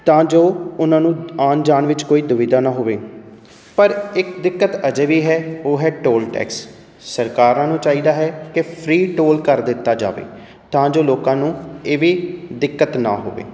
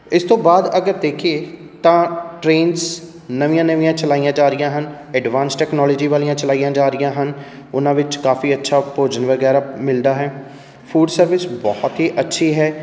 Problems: none marked